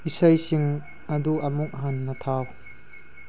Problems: low volume